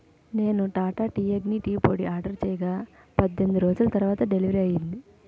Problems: none marked